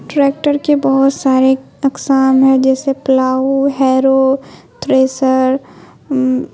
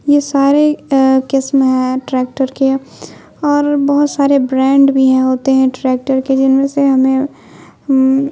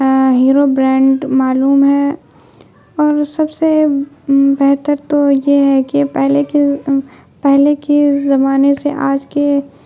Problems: constant background noise